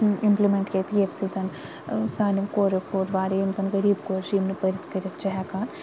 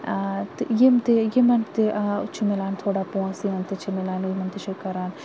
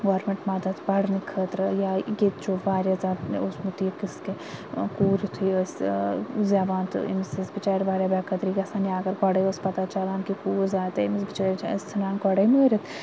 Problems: constant background noise